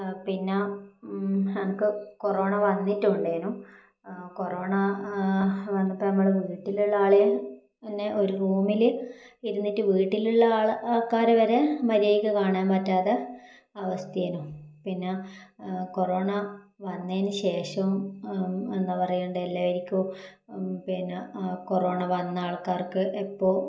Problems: none marked